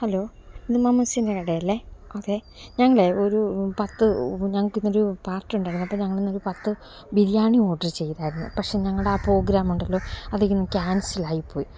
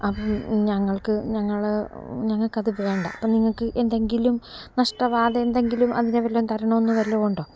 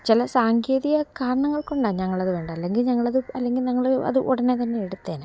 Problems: background sounds at intervals